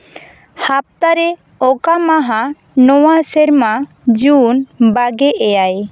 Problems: background sounds at intervals